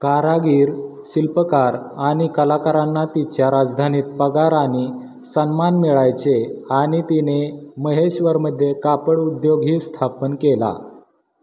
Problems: constant background noise, echo